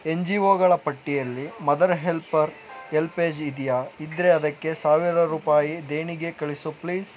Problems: background sounds at intervals